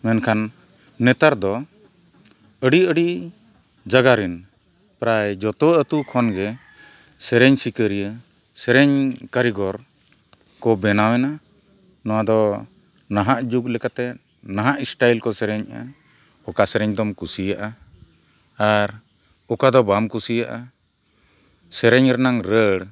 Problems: none marked